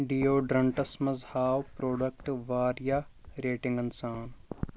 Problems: constant background noise